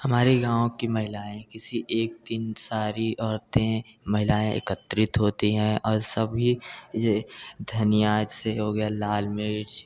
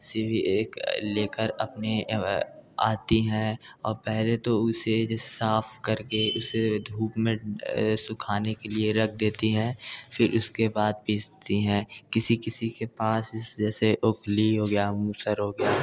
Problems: none marked